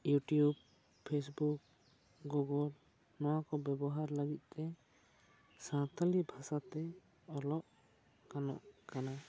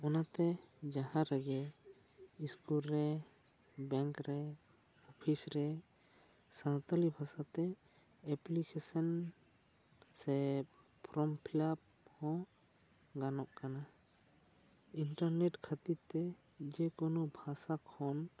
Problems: low volume